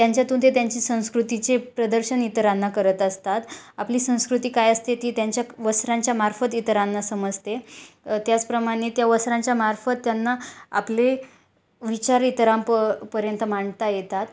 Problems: none marked